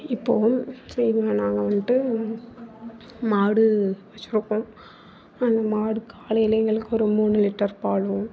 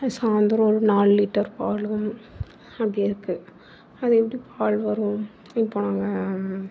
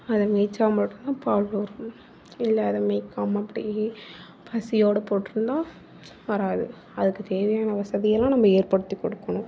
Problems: background conversations at intervals